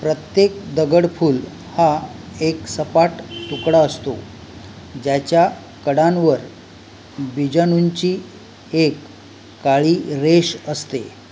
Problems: none marked